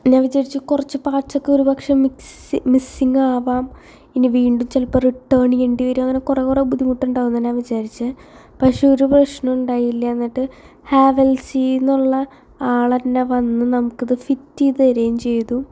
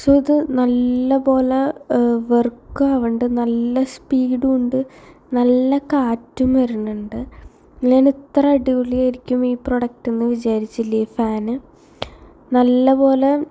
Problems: none marked